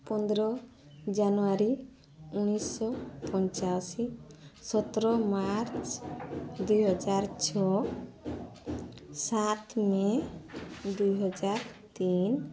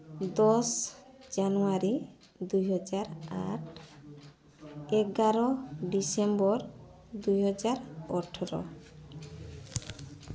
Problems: constant background noise, continuous background conversations